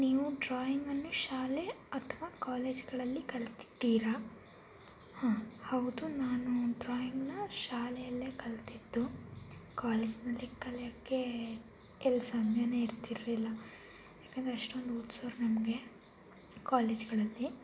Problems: constant background noise